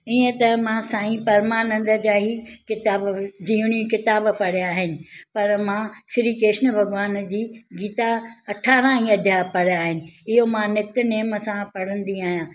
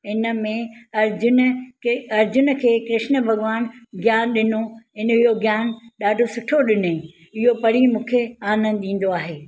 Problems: none marked